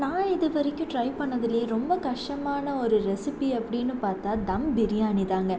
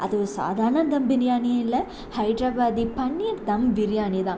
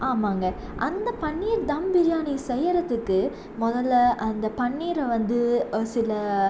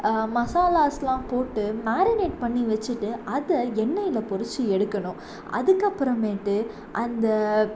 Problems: constant background noise